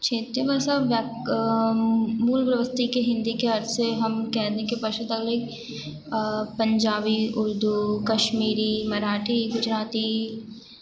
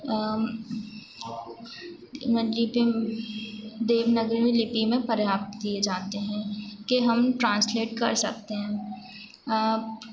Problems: none marked